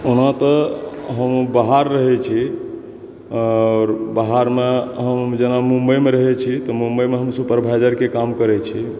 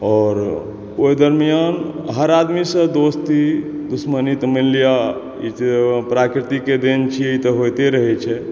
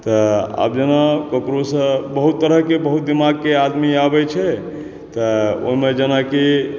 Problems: background sounds at intervals